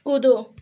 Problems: none marked